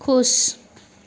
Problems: constant background noise